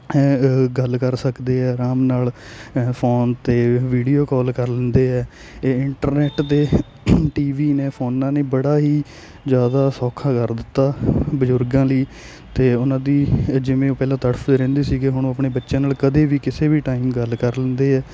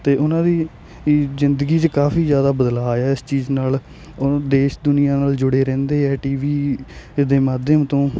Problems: constant background noise